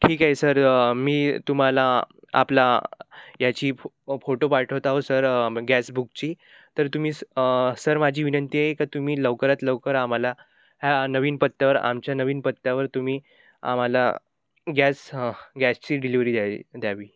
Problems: none marked